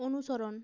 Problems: none marked